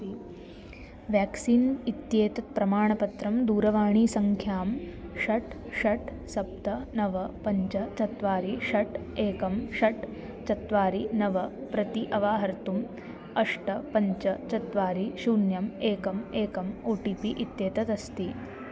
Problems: constant background noise